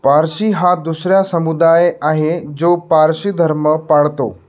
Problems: background sounds at intervals